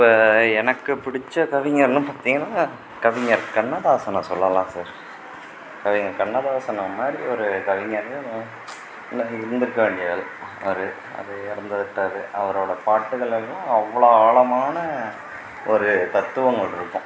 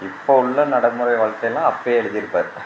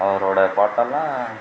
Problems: constant background noise